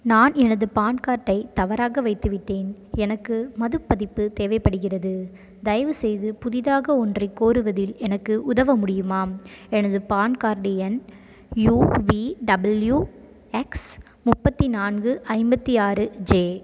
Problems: background sounds at intervals